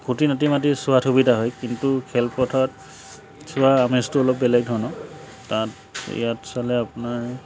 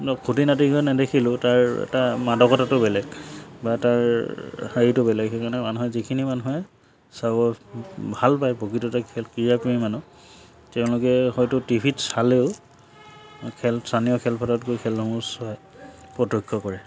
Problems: constant background noise